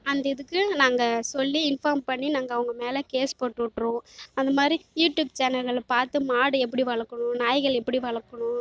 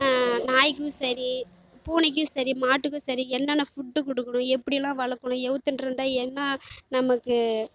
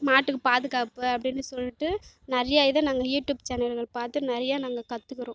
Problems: none marked